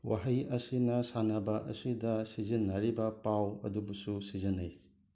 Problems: none marked